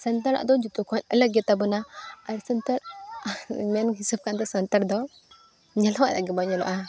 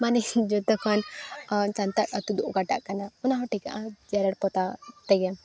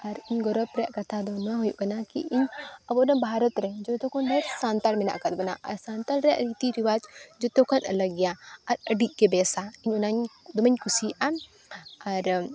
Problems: background sounds at intervals